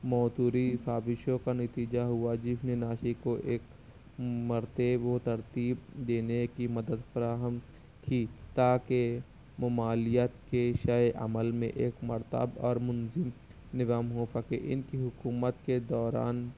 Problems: none marked